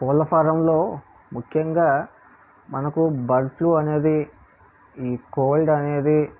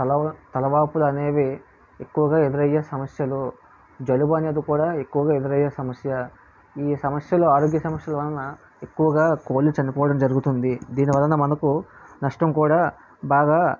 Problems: none marked